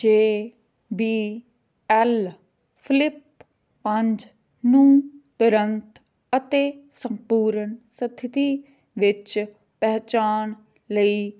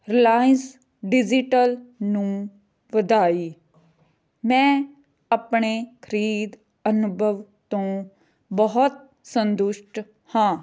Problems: background conversations at intervals